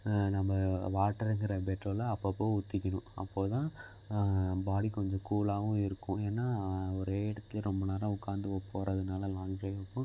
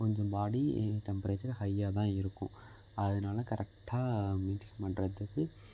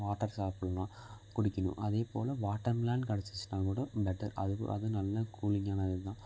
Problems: constant background noise